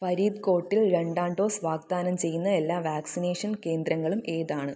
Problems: low volume